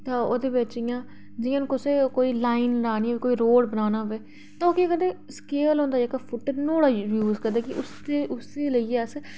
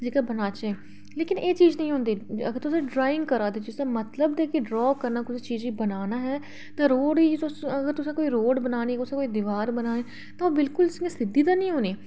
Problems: background conversations at intervals